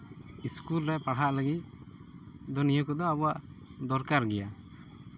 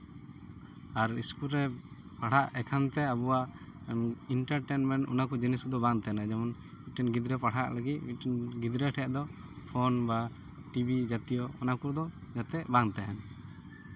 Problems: none marked